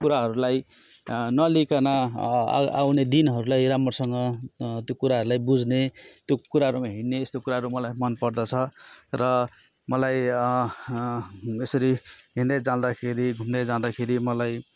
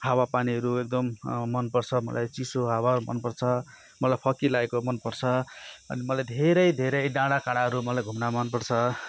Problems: background sounds at intervals